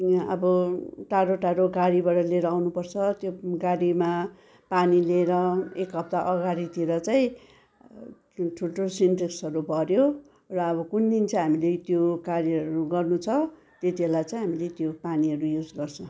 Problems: background sounds at intervals